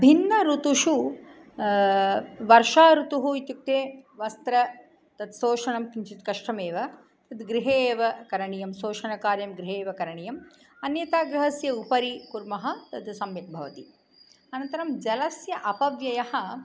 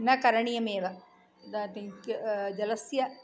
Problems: none marked